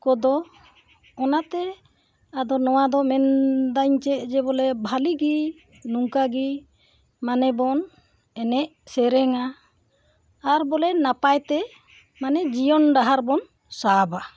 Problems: background sounds at intervals